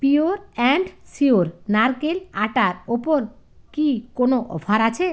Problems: none marked